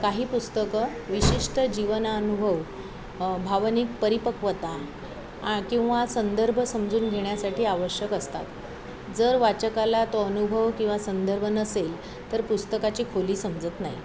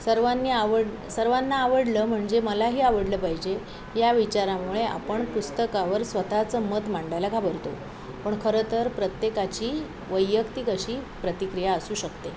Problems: constant background noise, background conversations at intervals